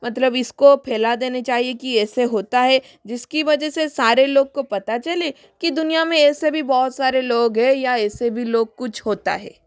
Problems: constant background noise, echo